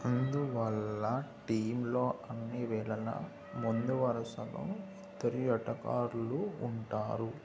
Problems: none marked